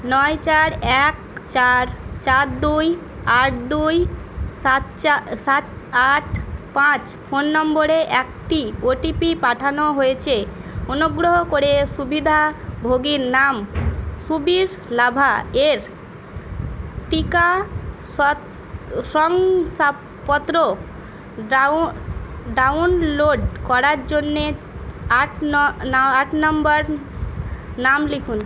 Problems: constant background noise, background conversations at intervals